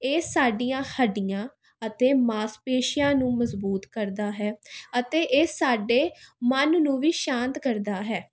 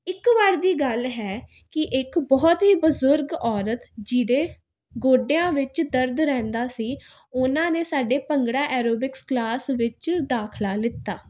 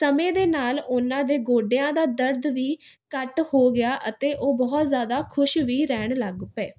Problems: constant background noise